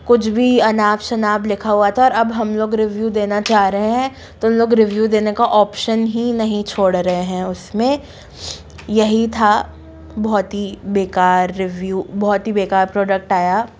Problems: constant background noise